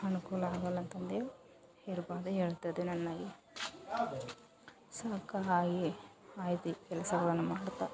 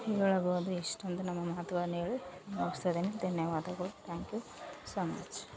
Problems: background sounds at intervals